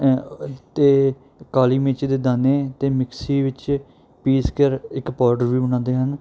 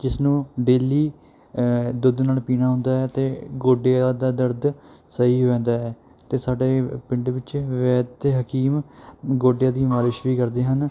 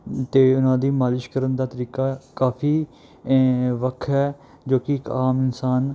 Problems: none marked